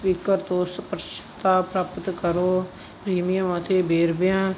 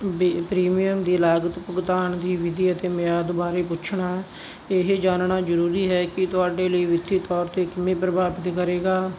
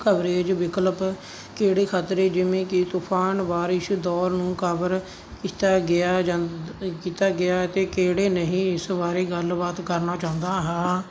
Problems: none marked